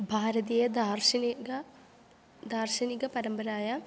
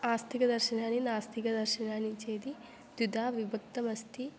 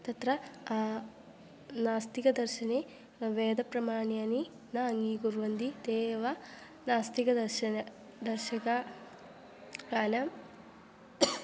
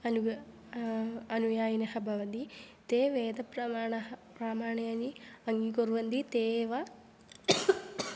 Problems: none marked